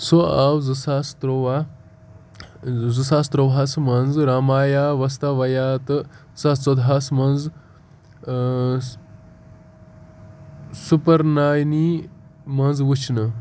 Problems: constant background noise